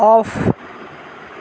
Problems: constant background noise